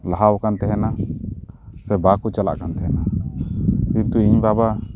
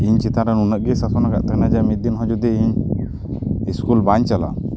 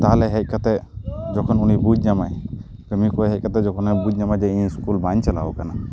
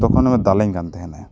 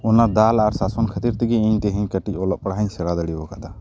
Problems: none marked